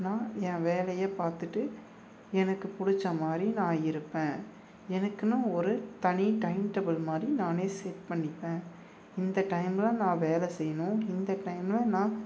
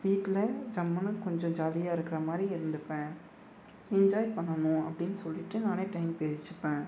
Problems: none marked